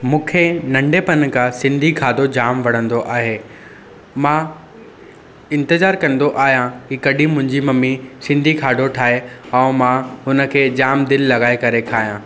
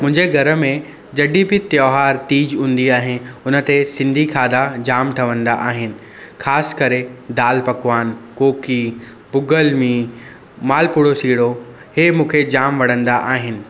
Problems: constant background noise, echo